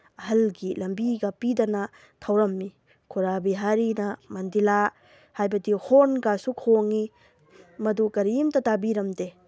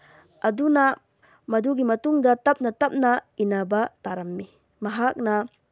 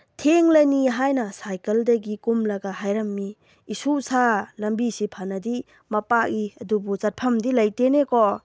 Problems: none marked